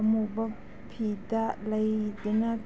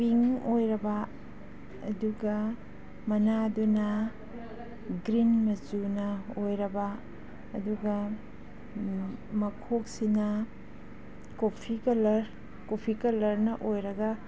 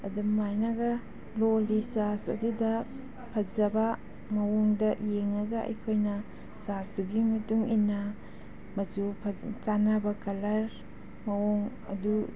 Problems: background sounds at intervals